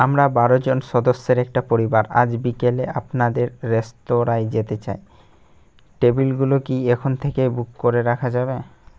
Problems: none marked